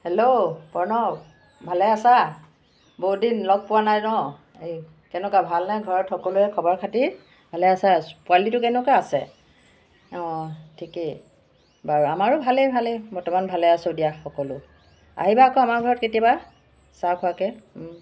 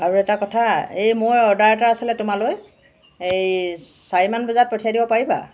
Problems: background sounds at intervals